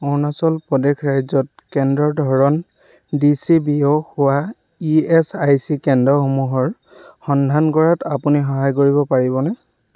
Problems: none marked